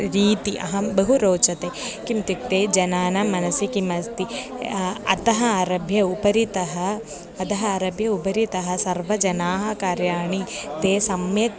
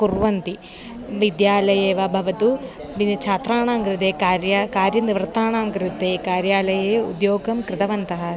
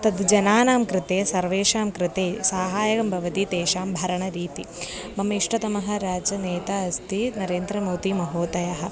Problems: background sounds at intervals